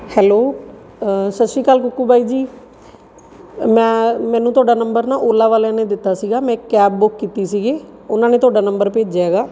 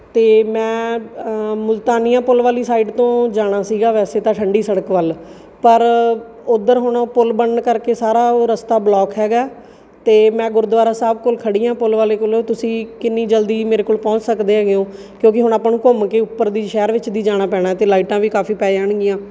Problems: background sounds at intervals, background conversations at intervals